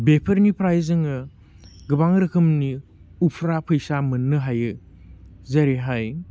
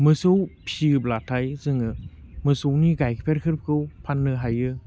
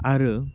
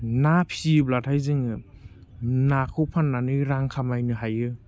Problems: none marked